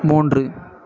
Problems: continuous background conversations